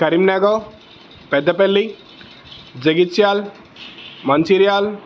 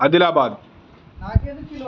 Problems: constant background noise, background conversations at intervals